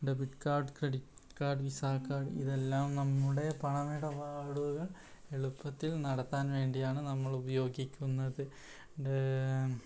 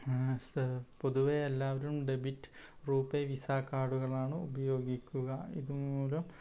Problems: none marked